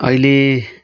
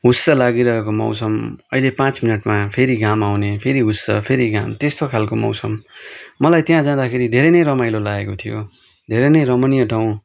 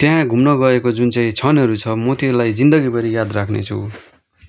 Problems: background sounds at intervals